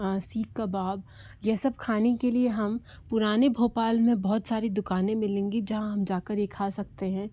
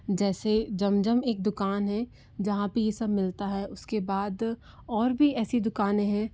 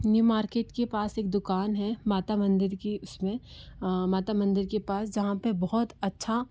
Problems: low volume